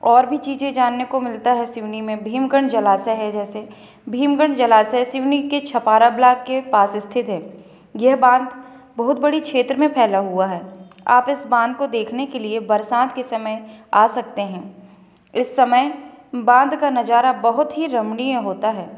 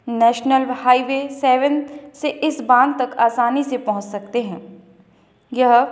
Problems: background sounds at intervals